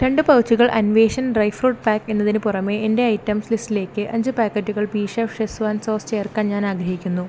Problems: constant background noise